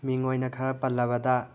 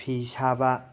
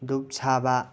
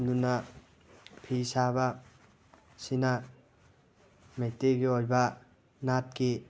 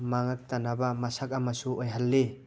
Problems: background sounds at intervals